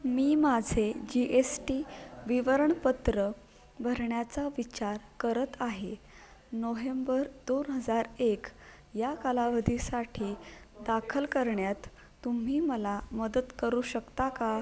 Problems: constant background noise